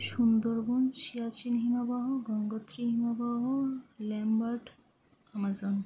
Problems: low volume